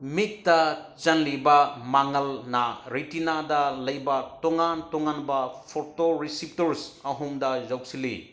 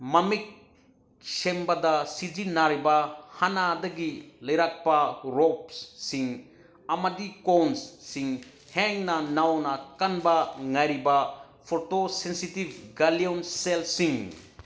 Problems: background sounds at intervals